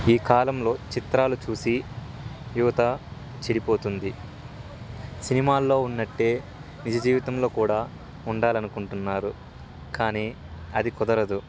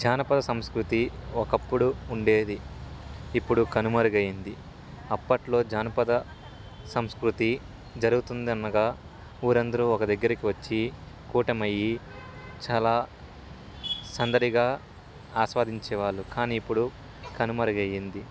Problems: constant background noise, background conversations at intervals